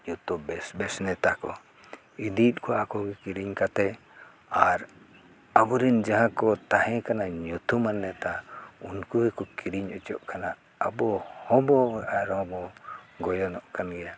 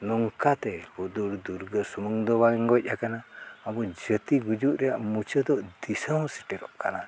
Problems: background sounds at intervals